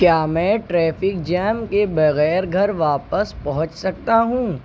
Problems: constant background noise